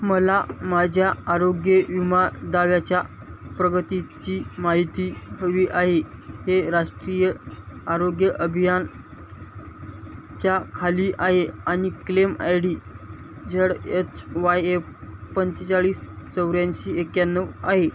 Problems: constant background noise